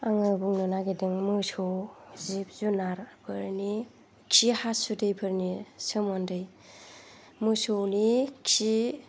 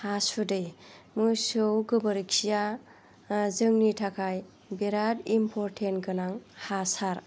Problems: low volume